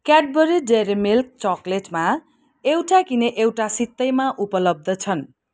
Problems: background sounds at intervals